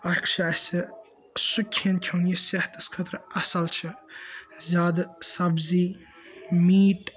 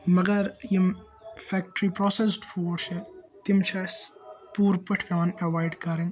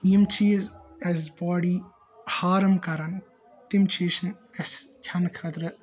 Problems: background sounds at intervals